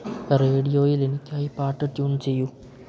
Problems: low volume